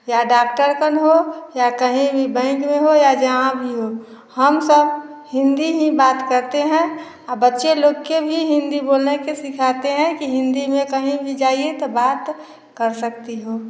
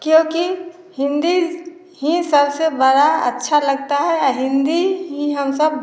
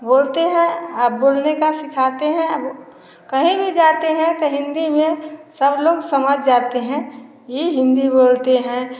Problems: none marked